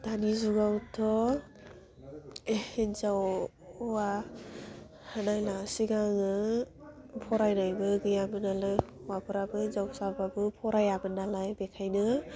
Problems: none marked